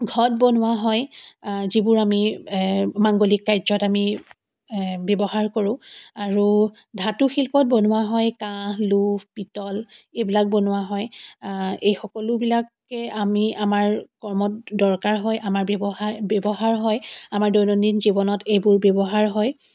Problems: none marked